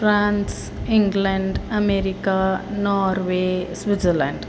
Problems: constant background noise